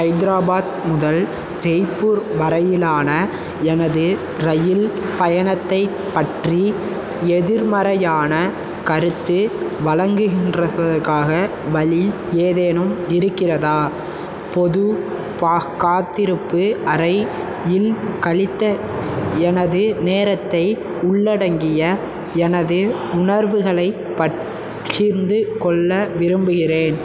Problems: constant background noise